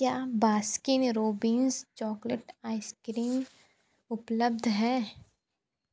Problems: constant background noise